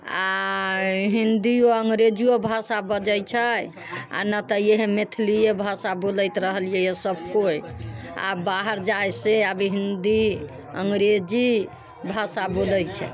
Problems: background sounds at intervals